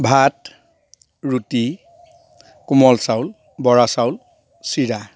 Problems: background sounds at intervals